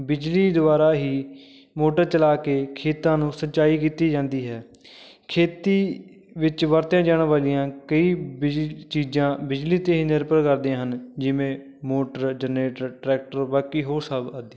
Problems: none marked